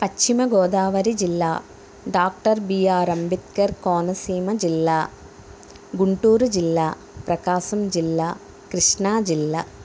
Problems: background sounds at intervals